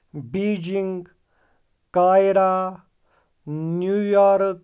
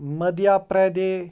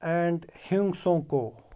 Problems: background sounds at intervals